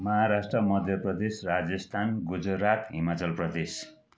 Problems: background conversations at intervals